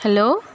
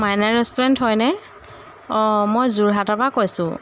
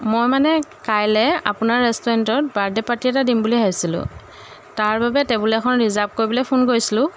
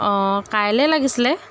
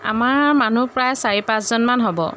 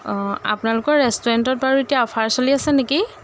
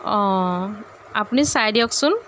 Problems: none marked